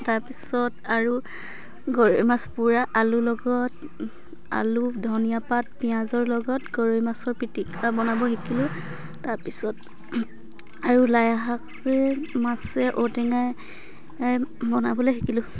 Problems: background sounds at intervals